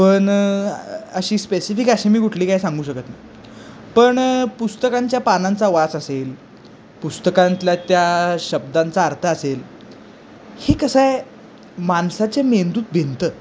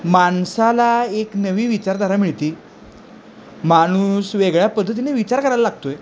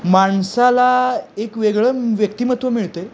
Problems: constant background noise, background conversations at intervals